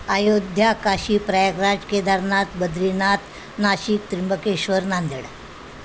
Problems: constant background noise